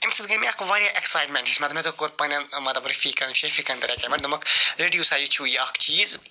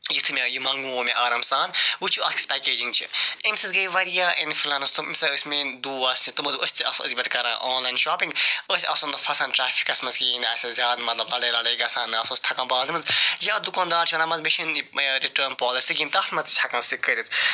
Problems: constant background noise